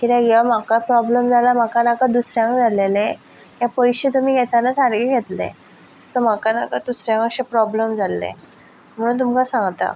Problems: background sounds at intervals